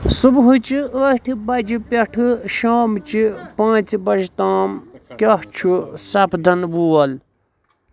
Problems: constant background noise